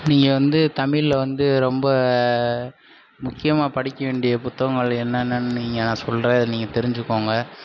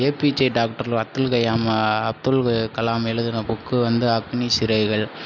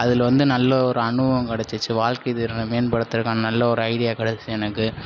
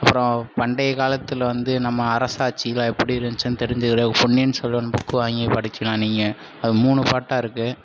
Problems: constant background noise